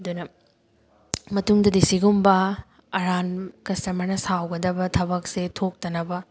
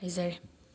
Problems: background sounds at intervals